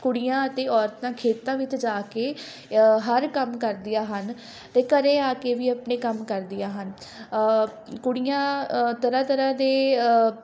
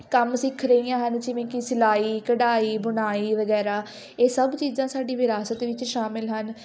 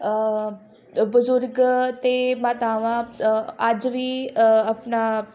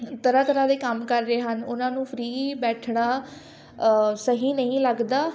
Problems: continuous background conversations